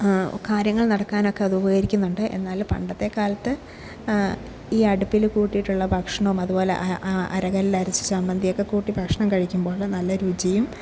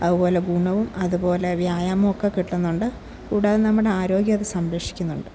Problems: low volume